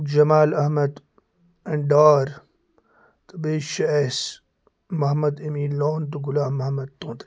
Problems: constant background noise